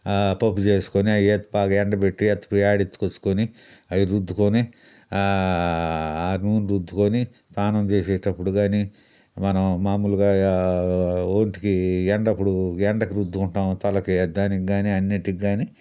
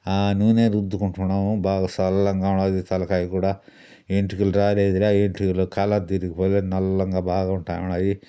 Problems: background sounds at intervals